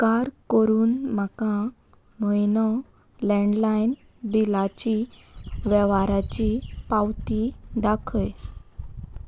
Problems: constant background noise